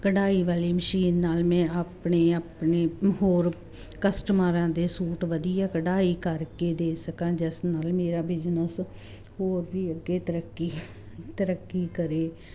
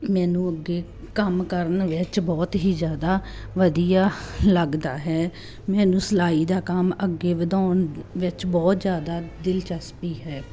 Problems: constant background noise